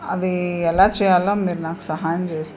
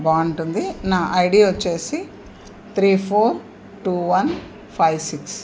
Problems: constant background noise